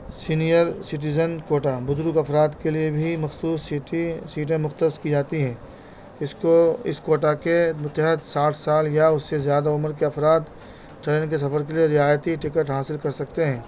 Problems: constant background noise